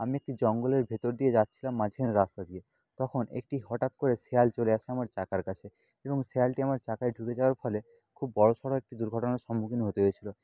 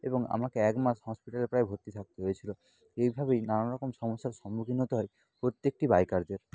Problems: constant background noise